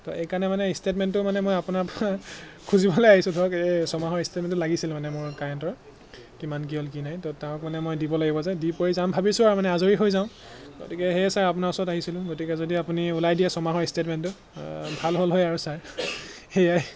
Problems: none marked